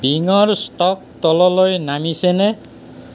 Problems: constant background noise